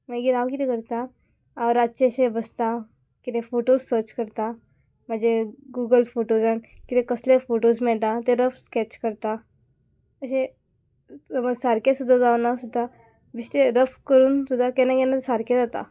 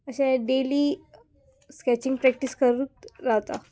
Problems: background sounds at intervals